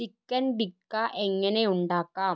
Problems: none marked